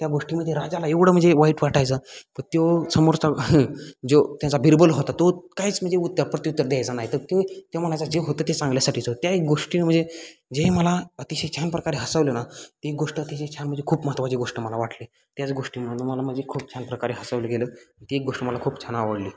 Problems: constant background noise, continuous background conversations